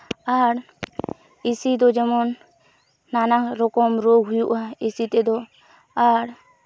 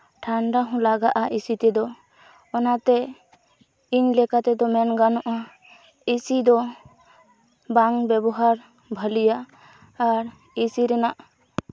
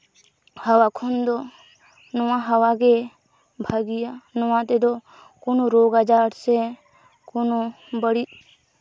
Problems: background sounds at intervals